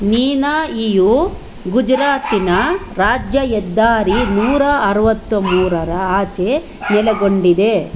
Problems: low volume